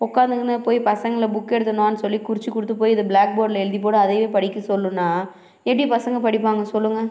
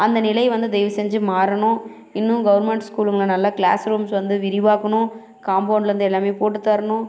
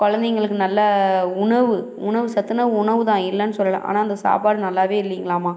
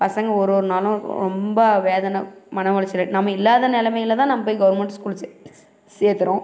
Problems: none marked